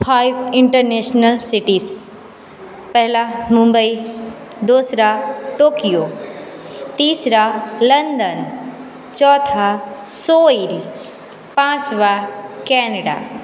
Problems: none marked